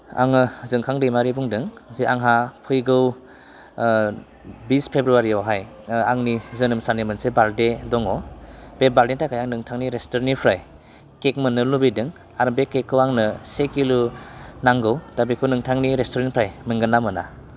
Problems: constant background noise